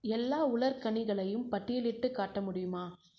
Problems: low volume